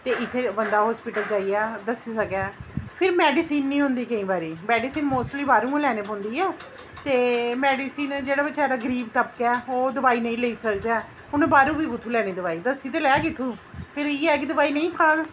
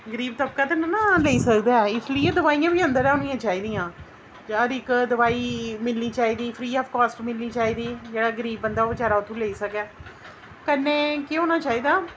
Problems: none marked